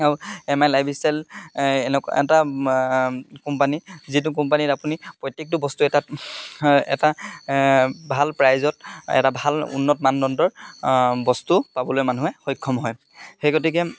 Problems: constant background noise